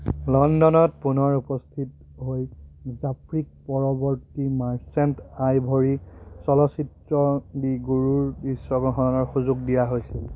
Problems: none marked